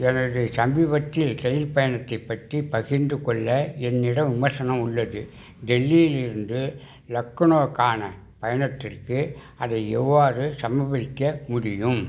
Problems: background sounds at intervals